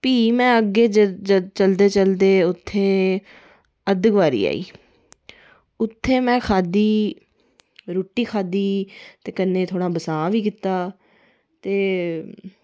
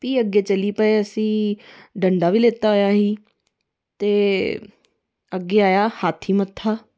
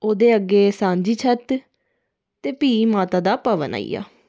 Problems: none marked